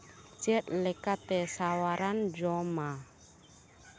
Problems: constant background noise